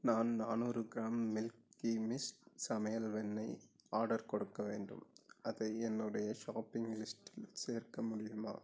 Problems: none marked